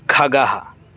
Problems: constant background noise